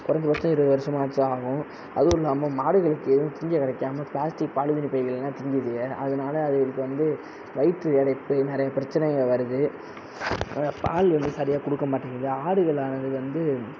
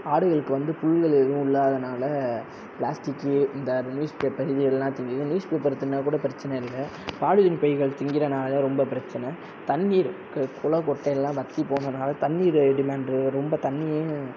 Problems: background sounds at intervals